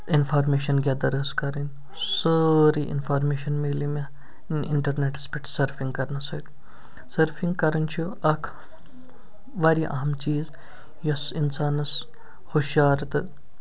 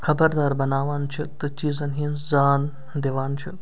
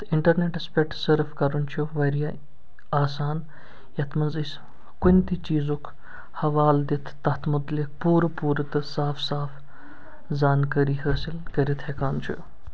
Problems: background sounds at intervals